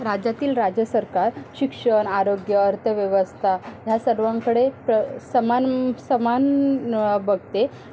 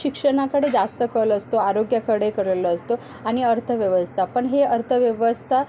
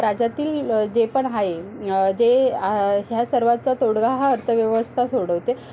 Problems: constant background noise, background conversations at intervals